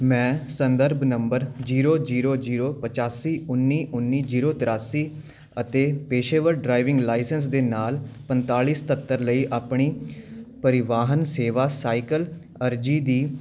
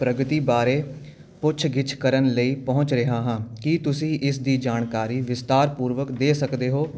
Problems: none marked